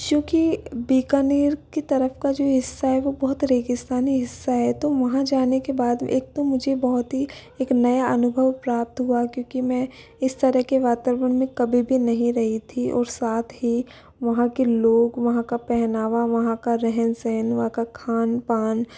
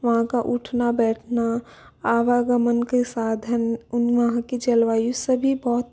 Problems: background sounds at intervals